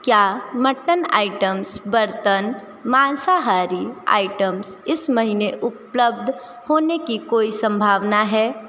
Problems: constant background noise